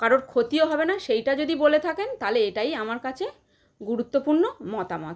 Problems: none marked